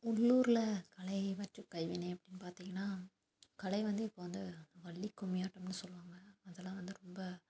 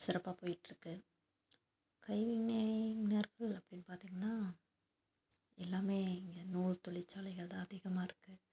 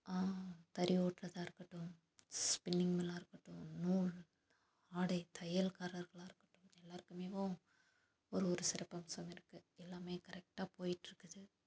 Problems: low volume